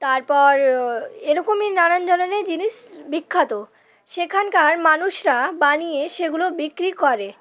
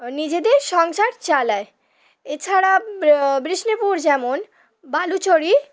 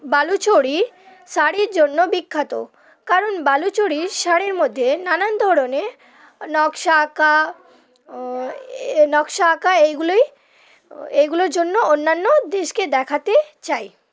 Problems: constant background noise